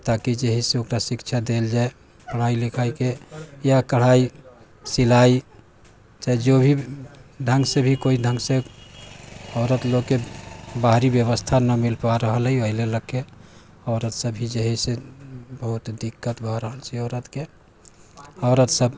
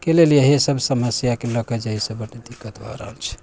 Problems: background sounds at intervals